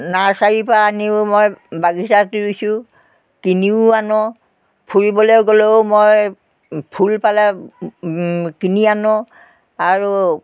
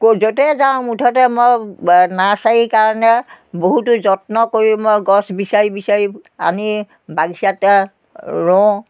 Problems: constant background noise